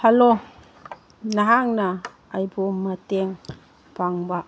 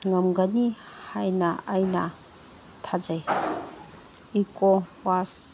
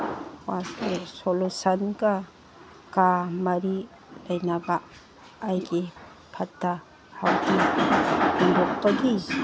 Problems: background sounds at intervals, background conversations at intervals